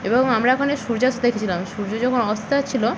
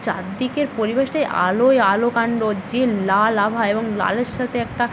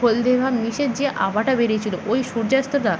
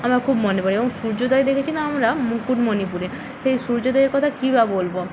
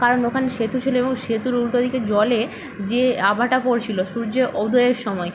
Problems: none marked